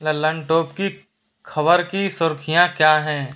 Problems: background sounds at intervals